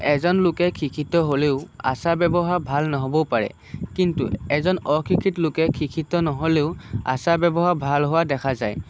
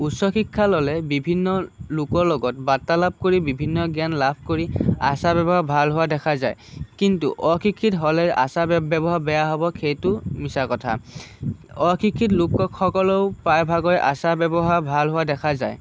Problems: none marked